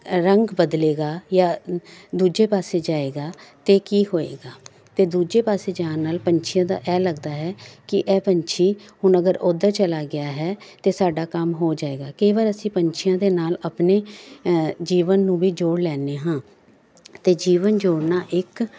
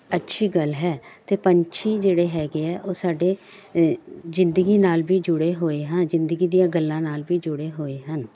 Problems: none marked